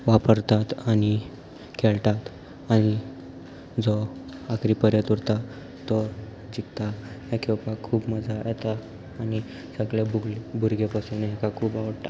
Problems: none marked